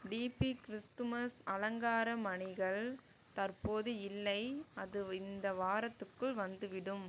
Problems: low volume